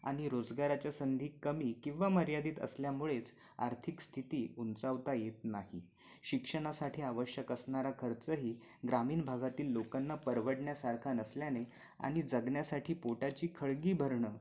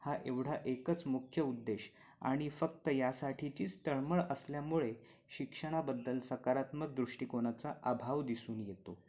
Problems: constant background noise